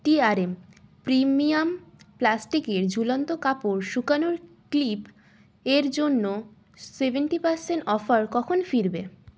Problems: constant background noise